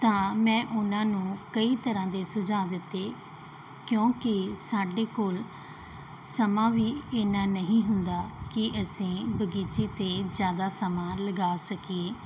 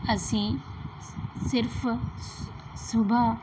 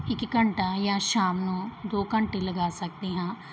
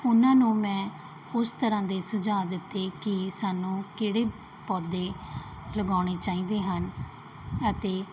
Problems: background sounds at intervals